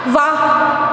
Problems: constant background noise